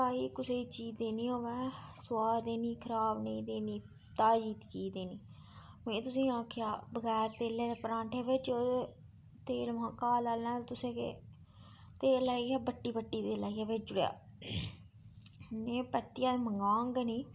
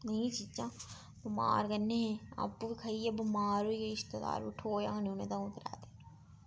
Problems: background sounds at intervals